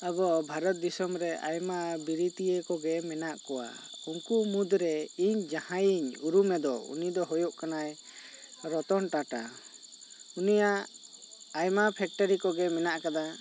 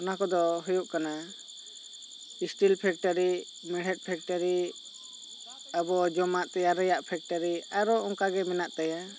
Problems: constant background noise